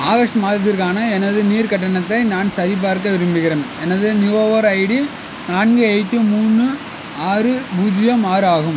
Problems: constant background noise